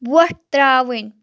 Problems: background sounds at intervals